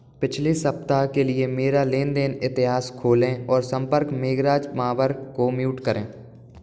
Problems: none marked